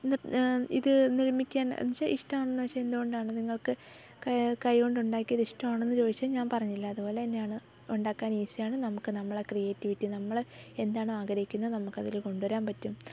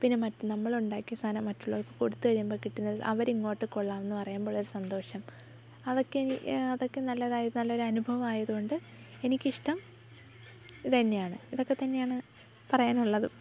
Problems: background sounds at intervals, low volume